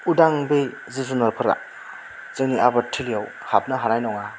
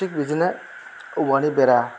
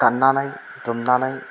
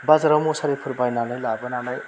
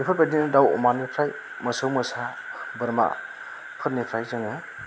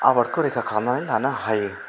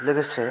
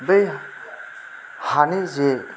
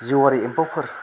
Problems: constant background noise